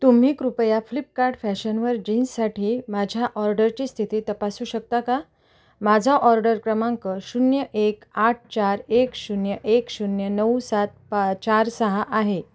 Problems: constant background noise